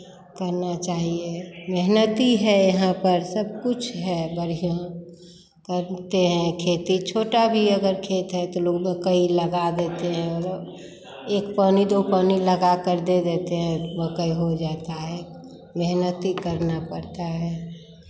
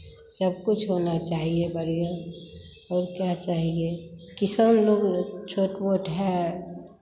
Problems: constant background noise, background conversations at intervals